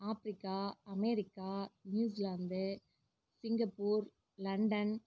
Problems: low volume